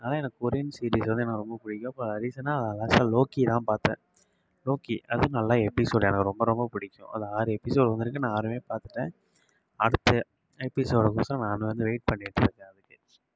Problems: low volume